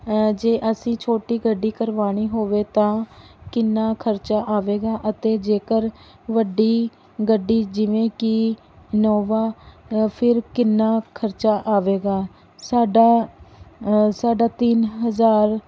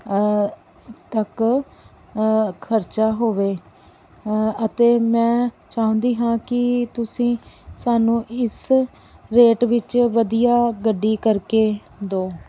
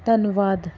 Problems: background sounds at intervals